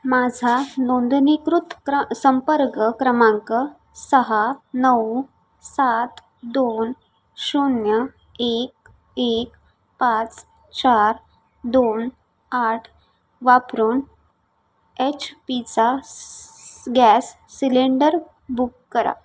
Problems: constant background noise